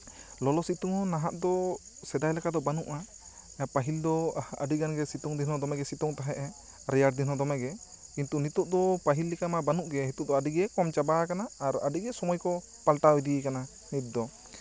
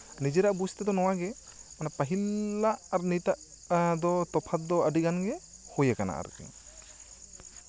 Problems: constant background noise, background conversations at intervals